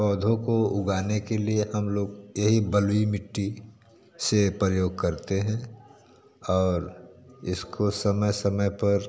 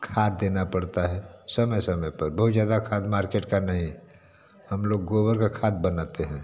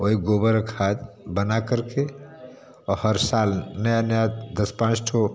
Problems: constant background noise, background conversations at intervals